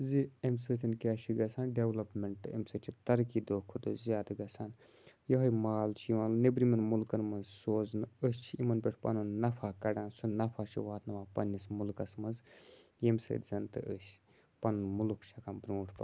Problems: constant background noise